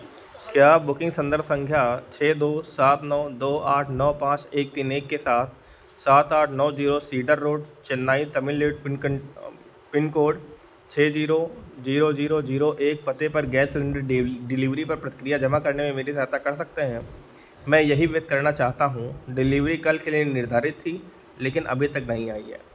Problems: none marked